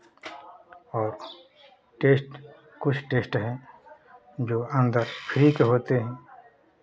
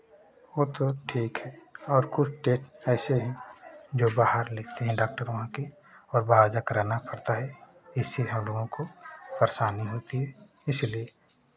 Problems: constant background noise, continuous background conversations